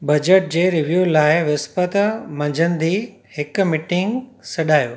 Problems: constant background noise